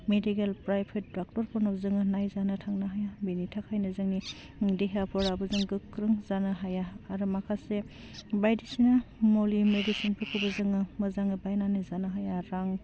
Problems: constant background noise